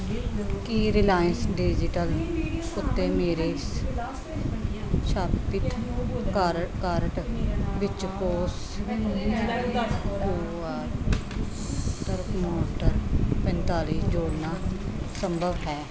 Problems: continuous background conversations